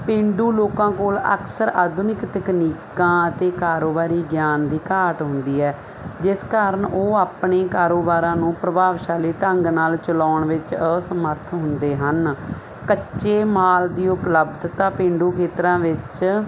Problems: constant background noise